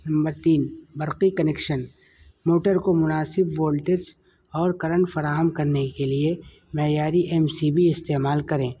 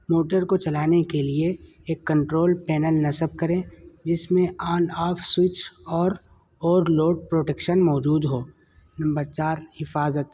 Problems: constant background noise